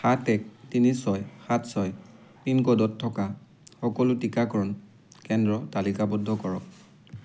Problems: none marked